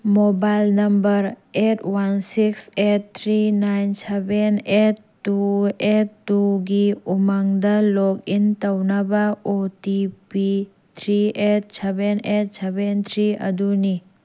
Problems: constant background noise